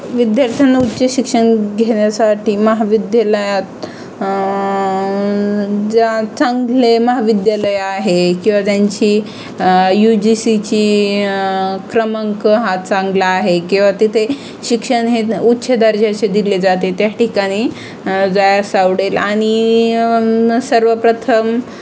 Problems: constant background noise